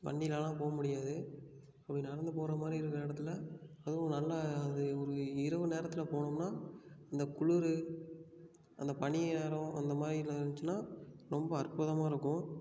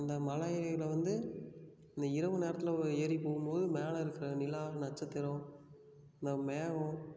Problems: none marked